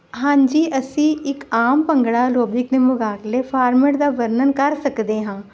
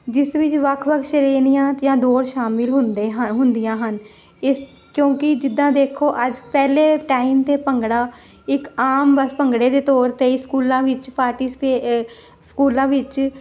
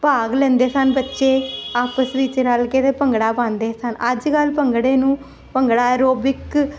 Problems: constant background noise